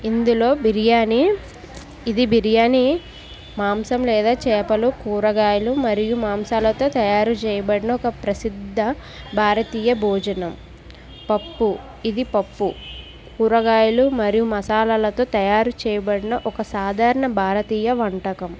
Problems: constant background noise